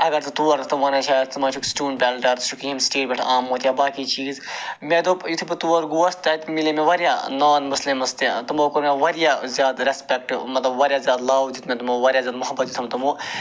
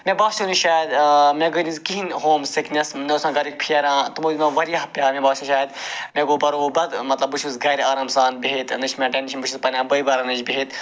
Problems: constant background noise